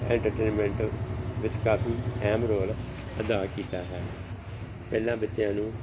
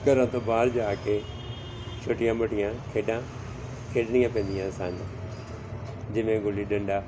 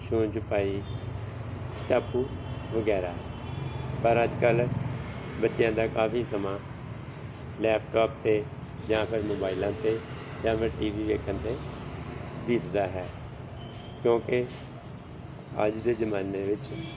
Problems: none marked